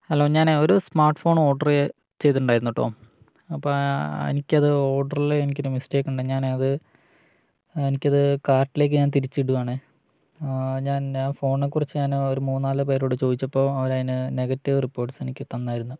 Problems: none marked